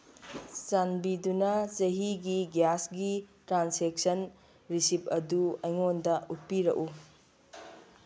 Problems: background sounds at intervals